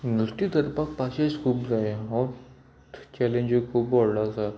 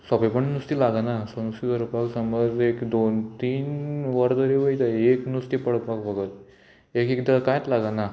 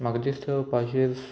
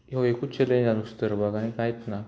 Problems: constant background noise